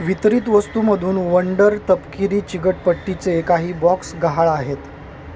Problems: constant background noise